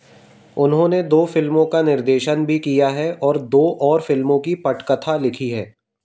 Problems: none marked